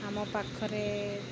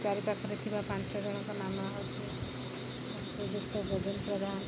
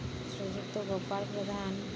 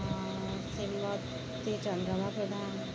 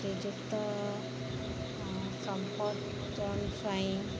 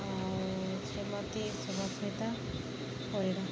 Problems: constant background noise